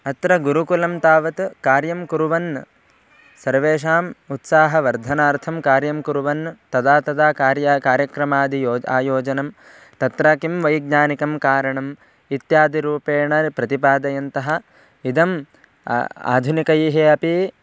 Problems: none marked